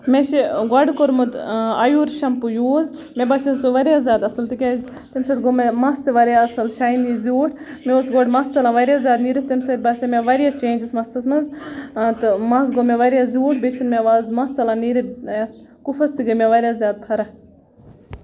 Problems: continuous background conversations